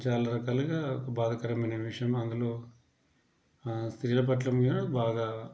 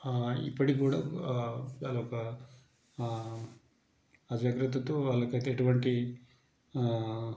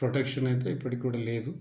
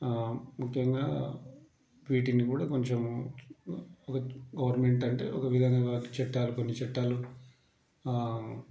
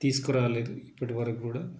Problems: low volume